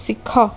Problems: constant background noise